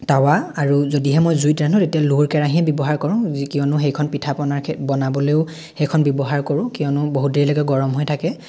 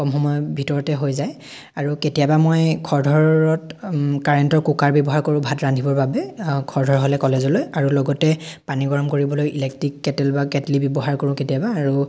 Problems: none marked